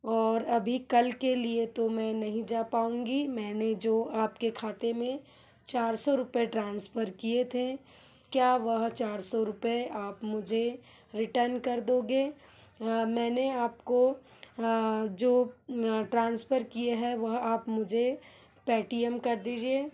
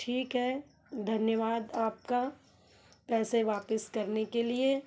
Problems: background sounds at intervals